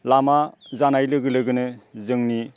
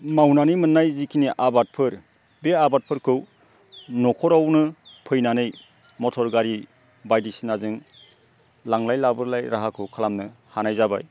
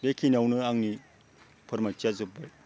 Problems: low volume